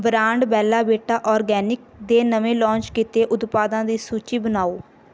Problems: background sounds at intervals